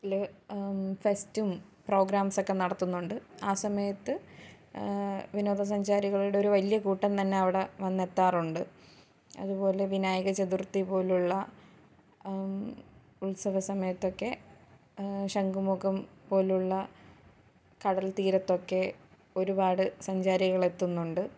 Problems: none marked